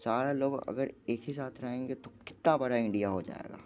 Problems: none marked